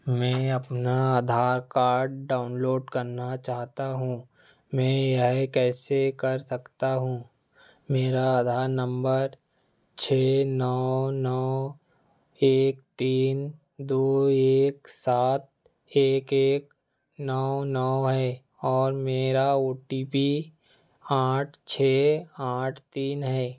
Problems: background sounds at intervals